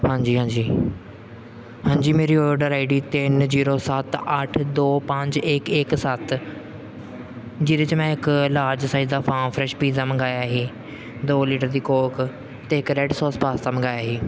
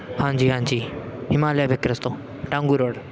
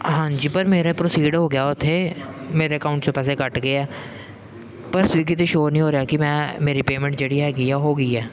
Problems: constant background noise